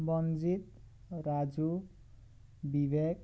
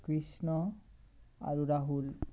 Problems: constant background noise